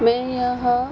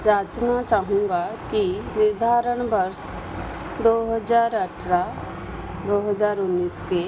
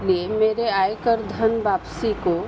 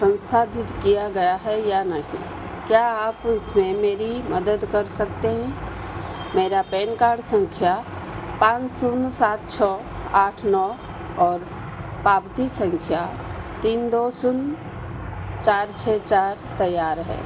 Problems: constant background noise